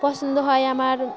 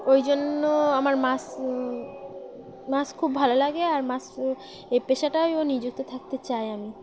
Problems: none marked